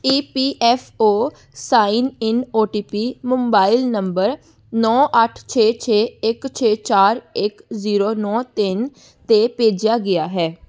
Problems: background sounds at intervals